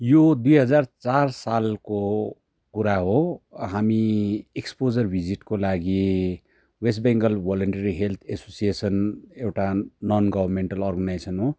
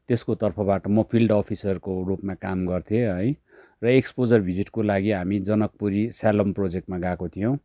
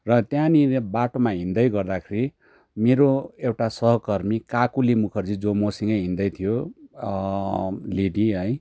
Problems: none marked